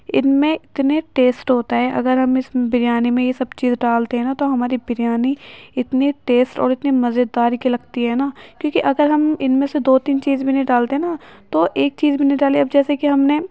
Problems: constant background noise